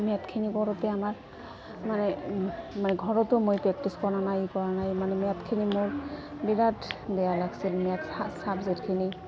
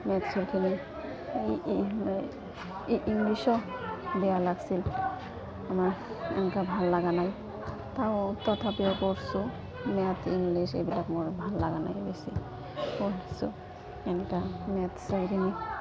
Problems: constant background noise, continuous background conversations